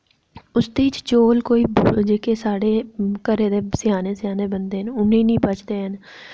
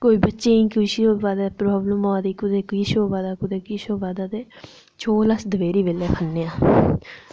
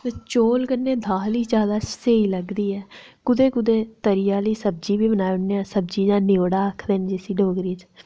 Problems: none marked